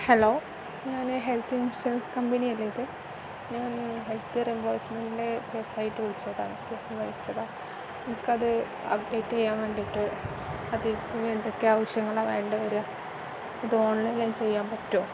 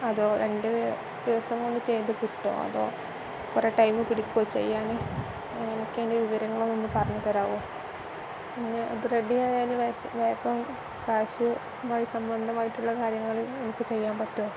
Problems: constant background noise